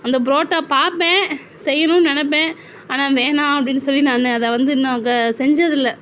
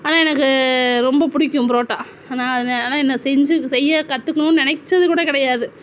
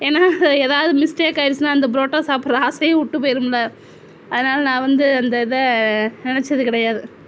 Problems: none marked